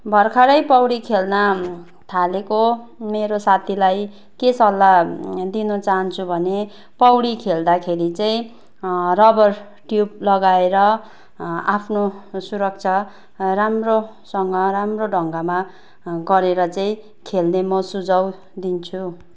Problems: constant background noise